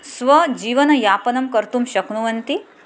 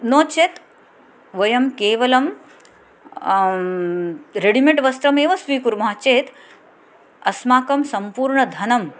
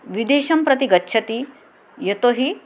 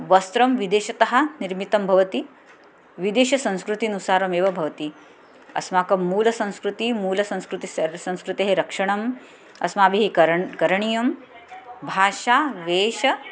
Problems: none marked